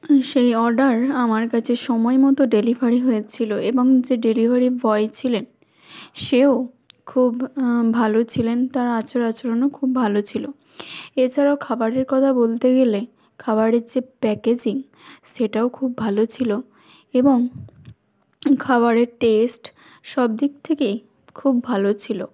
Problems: background sounds at intervals